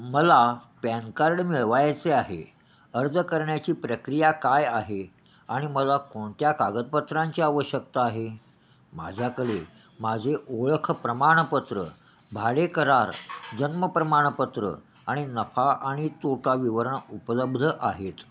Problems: constant background noise, echo